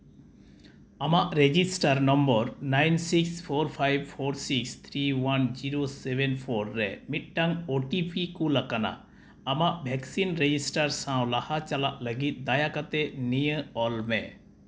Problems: none marked